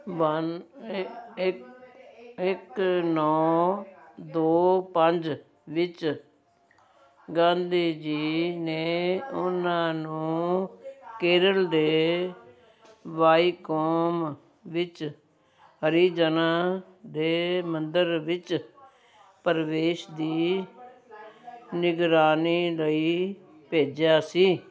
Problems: continuous background conversations